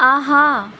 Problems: constant background noise